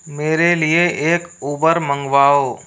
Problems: constant background noise